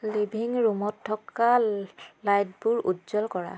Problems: constant background noise